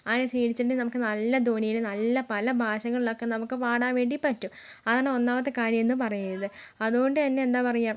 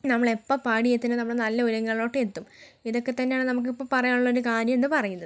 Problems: background sounds at intervals, low volume